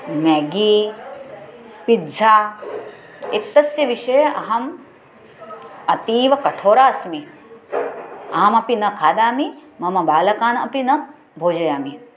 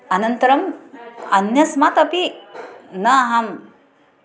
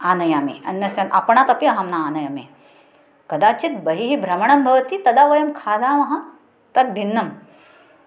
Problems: background sounds at intervals